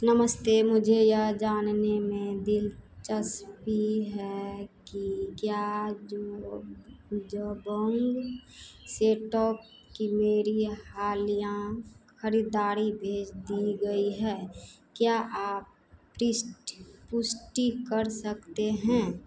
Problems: none marked